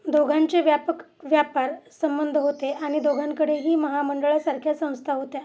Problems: constant background noise